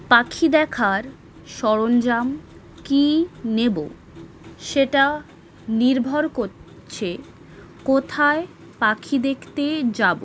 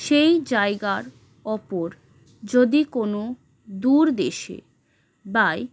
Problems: none marked